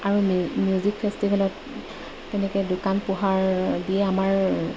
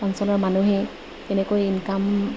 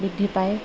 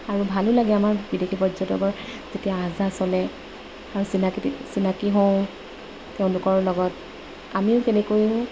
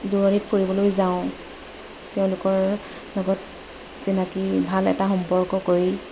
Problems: none marked